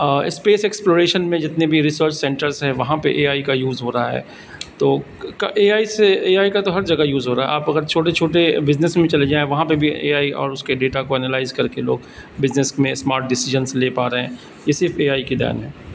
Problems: constant background noise